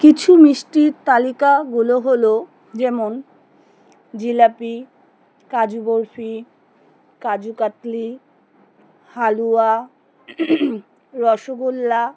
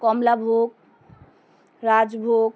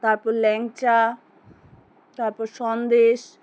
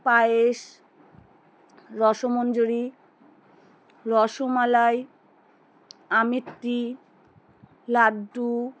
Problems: none marked